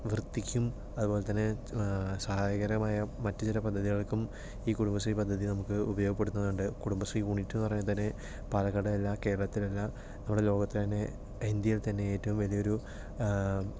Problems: none marked